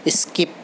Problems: constant background noise